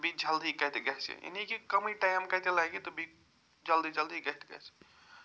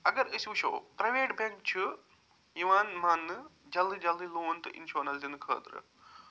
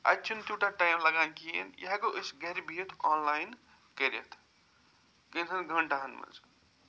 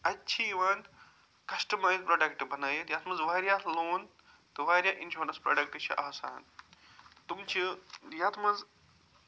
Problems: none marked